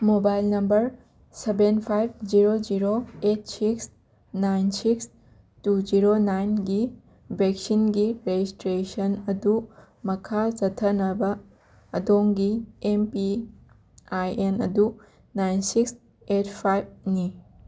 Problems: none marked